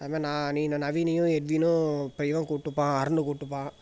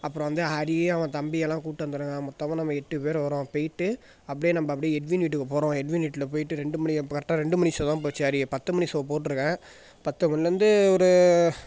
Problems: background sounds at intervals